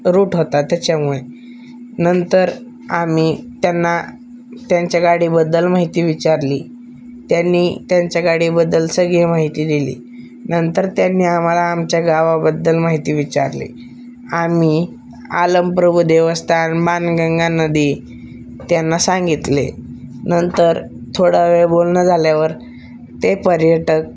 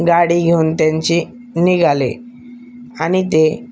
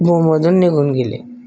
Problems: none marked